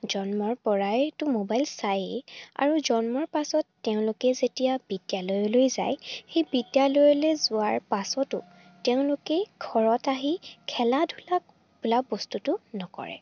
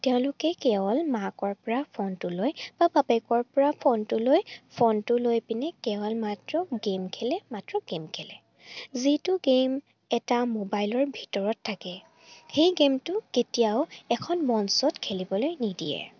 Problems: none marked